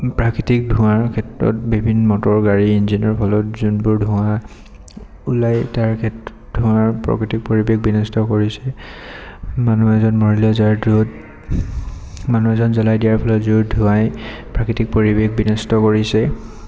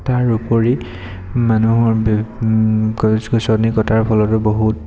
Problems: background sounds at intervals, echo